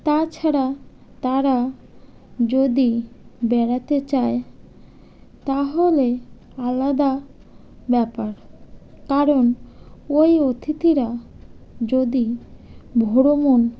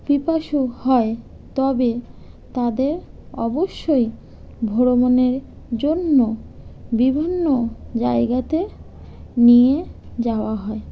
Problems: none marked